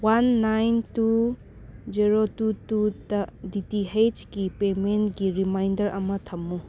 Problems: background sounds at intervals